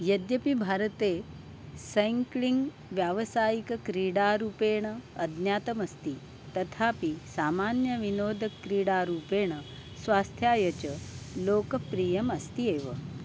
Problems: constant background noise